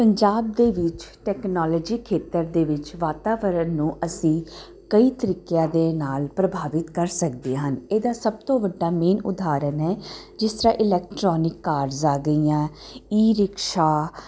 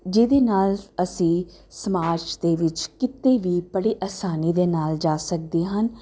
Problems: none marked